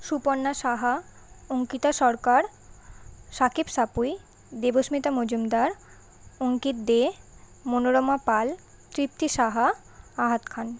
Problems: constant background noise